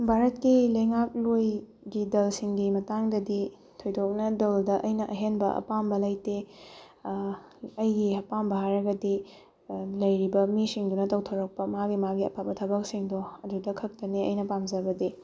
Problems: none marked